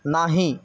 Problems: background sounds at intervals